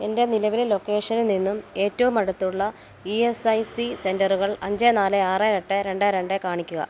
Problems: background sounds at intervals